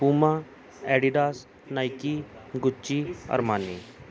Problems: none marked